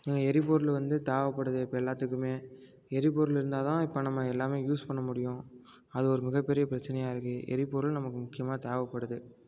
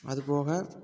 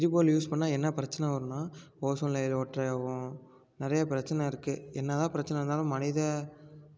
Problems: constant background noise